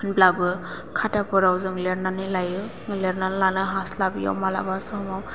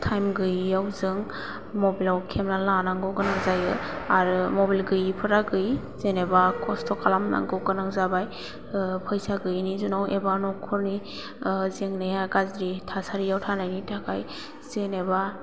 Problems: low volume